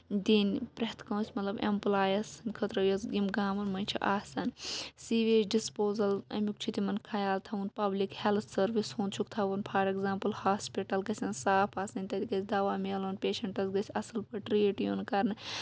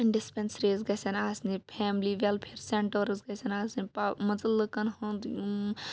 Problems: none marked